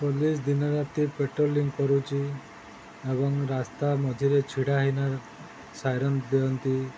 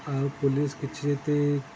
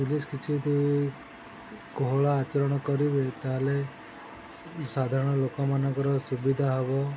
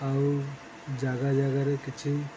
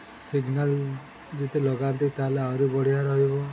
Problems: constant background noise